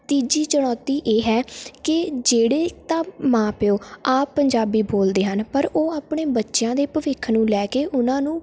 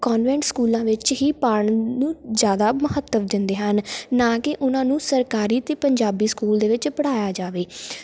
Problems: background conversations at intervals